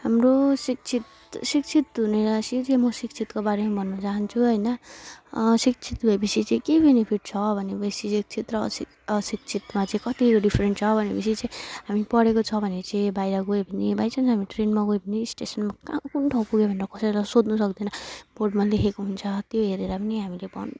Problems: none marked